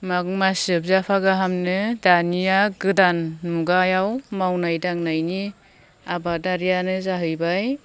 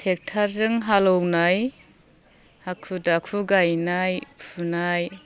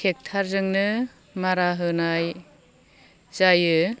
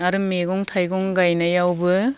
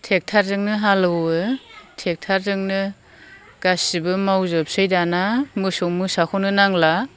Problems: none marked